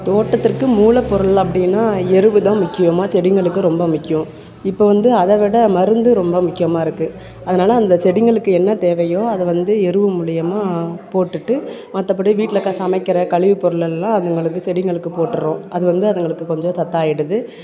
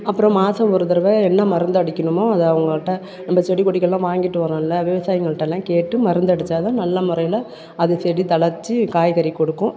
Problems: background conversations at intervals